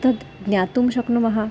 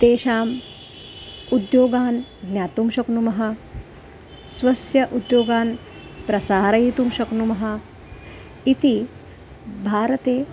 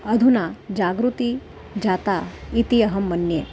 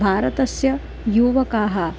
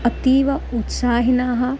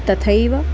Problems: constant background noise